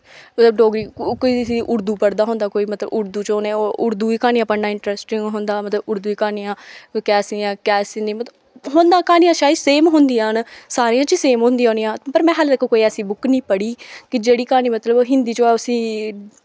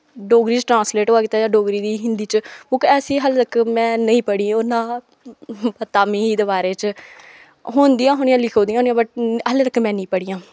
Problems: background sounds at intervals